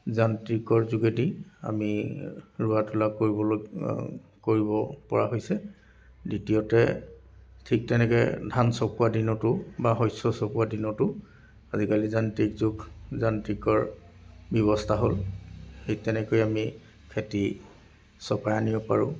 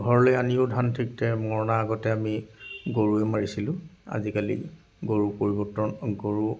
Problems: background sounds at intervals, background conversations at intervals